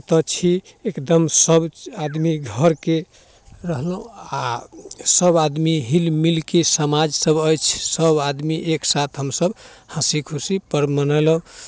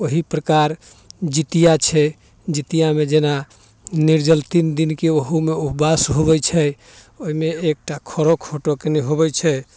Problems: none marked